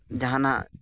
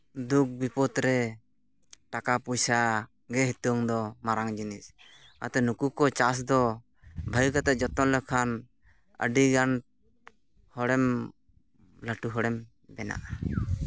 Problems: background sounds at intervals